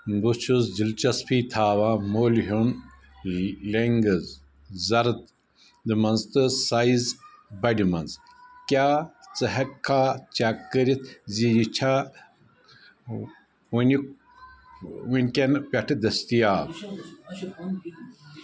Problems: constant background noise, background conversations at intervals